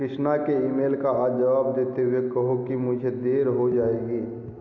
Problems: background sounds at intervals